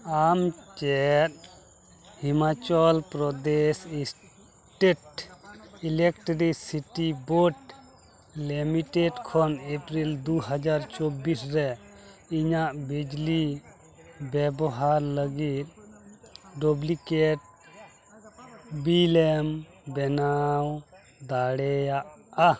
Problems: background sounds at intervals, continuous background conversations